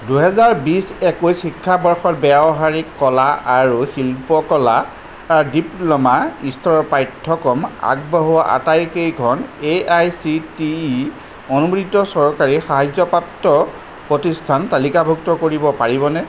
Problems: constant background noise